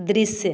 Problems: constant background noise, continuous background conversations